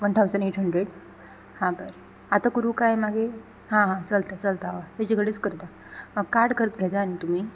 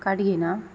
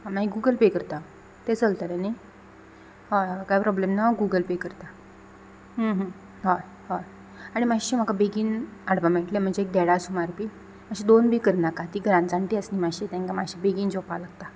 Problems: none marked